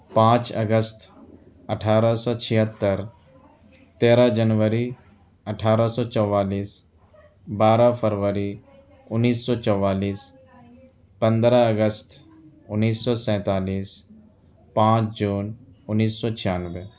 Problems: none marked